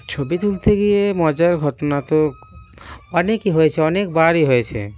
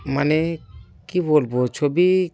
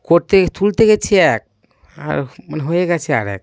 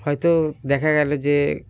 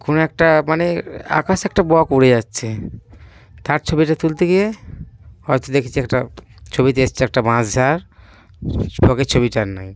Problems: background sounds at intervals